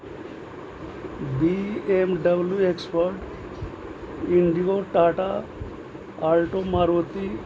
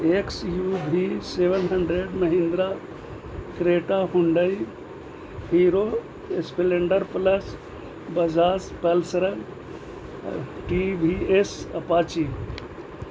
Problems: constant background noise